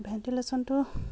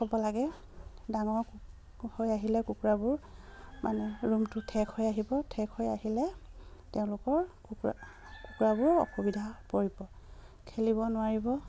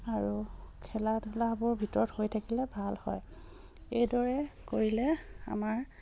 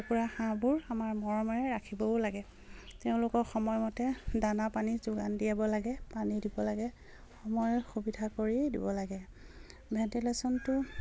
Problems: constant background noise